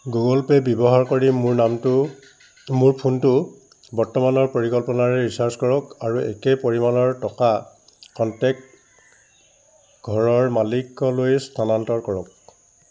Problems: none marked